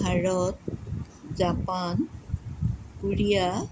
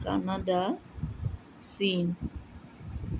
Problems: none marked